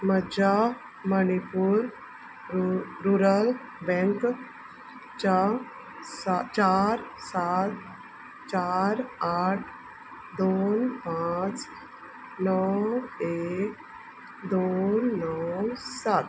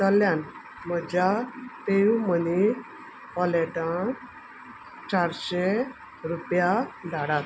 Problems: constant background noise